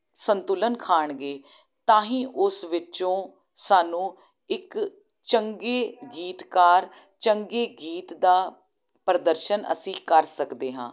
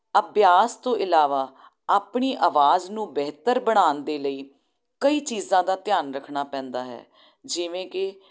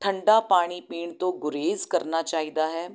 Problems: none marked